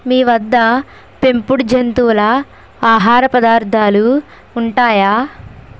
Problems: constant background noise